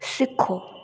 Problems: low volume